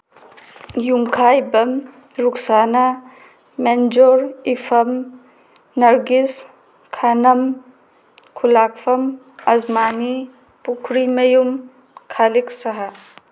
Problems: background sounds at intervals